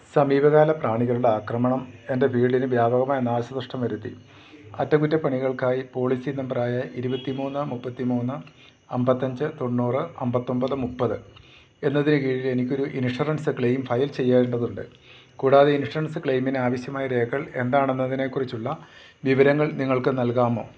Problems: constant background noise